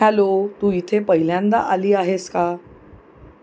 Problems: constant background noise